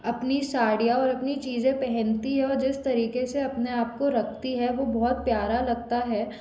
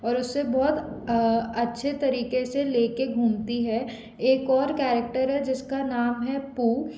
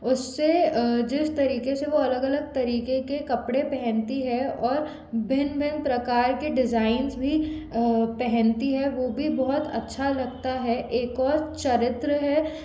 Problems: constant background noise